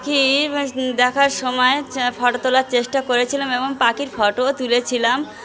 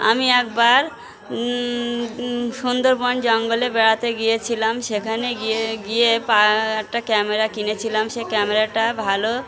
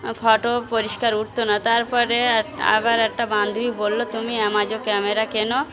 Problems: constant background noise, background conversations at intervals